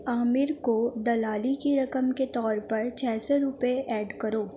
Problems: background sounds at intervals